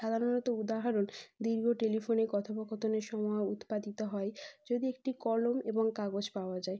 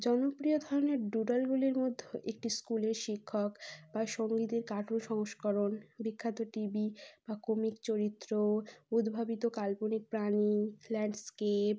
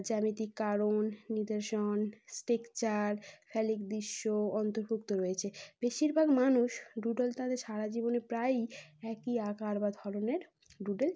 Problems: none marked